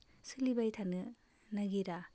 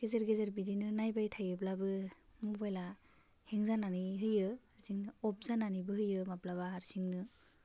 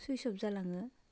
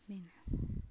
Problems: constant background noise